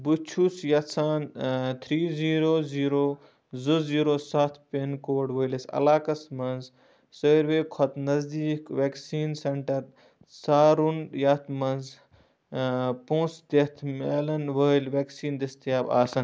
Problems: low volume